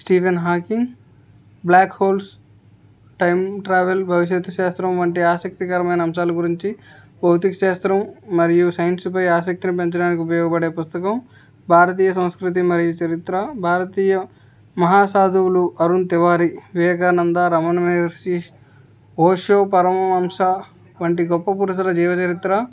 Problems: background sounds at intervals